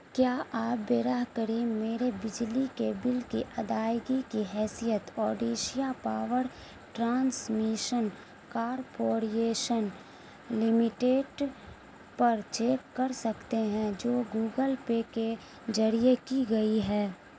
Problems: constant background noise